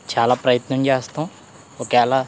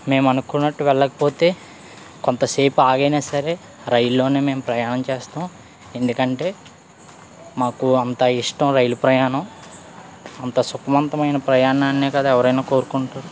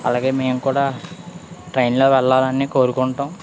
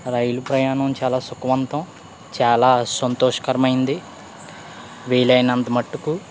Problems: none marked